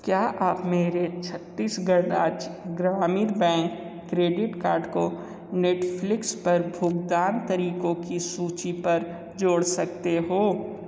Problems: none marked